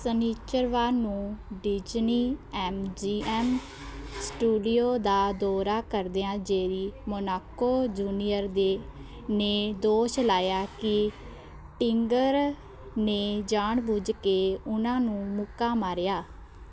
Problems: constant background noise, continuous background conversations